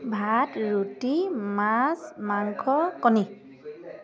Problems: none marked